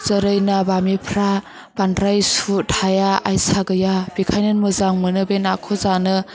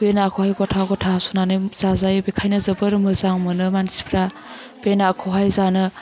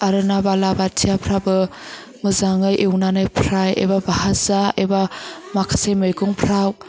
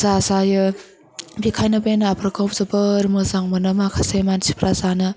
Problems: constant background noise